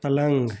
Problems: constant background noise